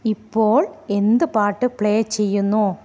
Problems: none marked